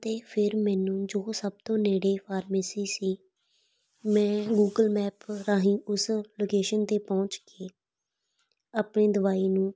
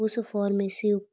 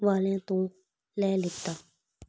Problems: background sounds at intervals